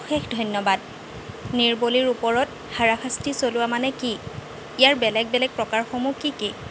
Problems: constant background noise